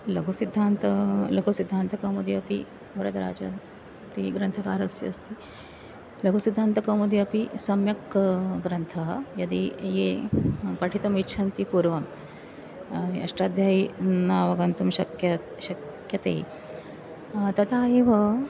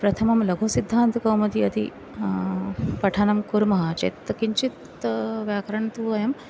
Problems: background sounds at intervals